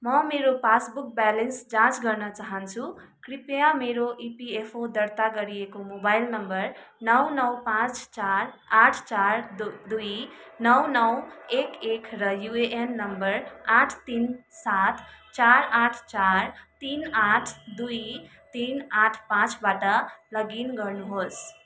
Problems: constant background noise